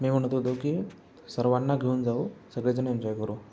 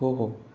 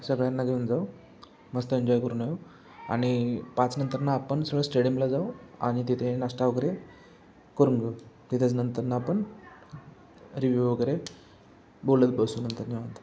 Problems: constant background noise